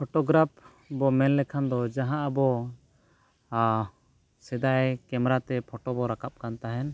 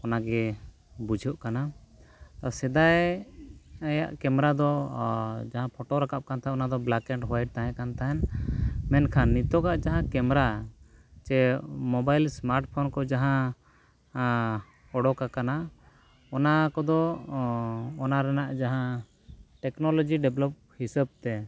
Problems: background sounds at intervals